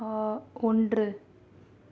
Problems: none marked